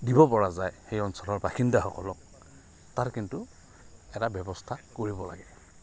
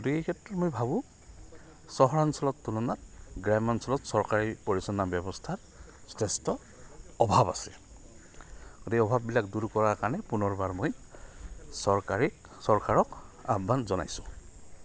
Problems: none marked